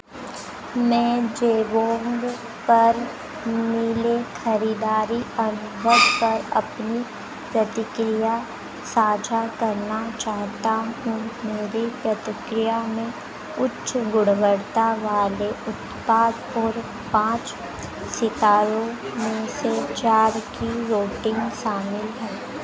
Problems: background sounds at intervals